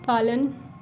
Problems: background sounds at intervals